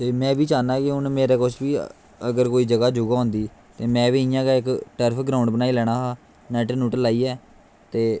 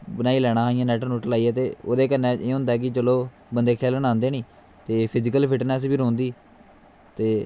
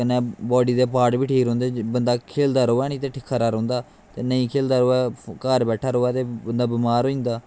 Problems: constant background noise